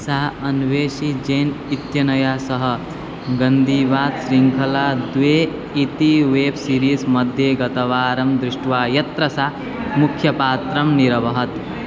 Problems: none marked